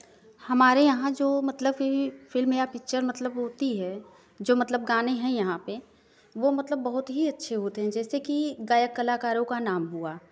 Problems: none marked